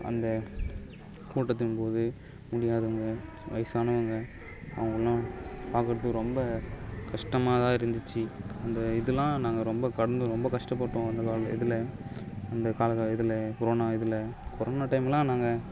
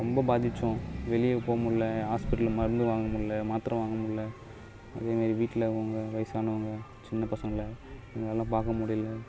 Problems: none marked